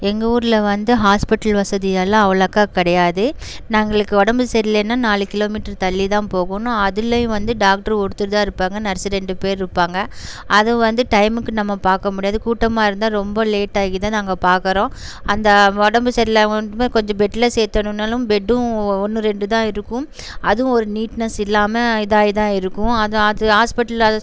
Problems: background sounds at intervals